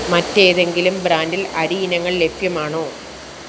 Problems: constant background noise